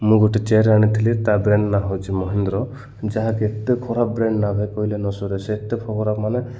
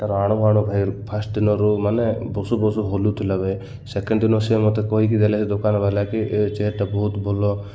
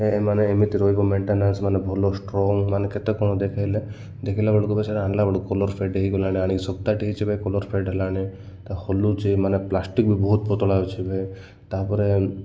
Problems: none marked